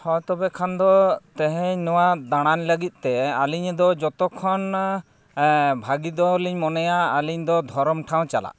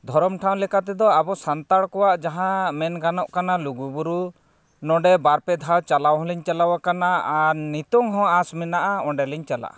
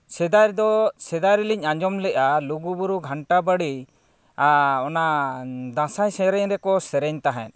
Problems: none marked